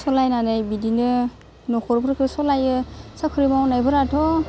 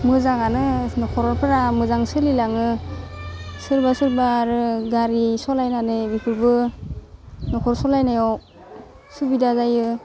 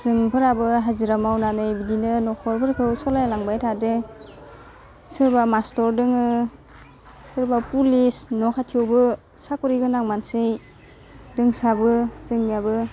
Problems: constant background noise